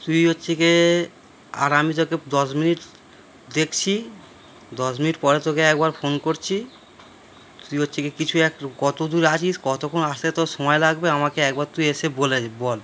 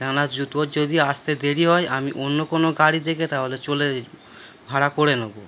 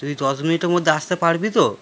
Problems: none marked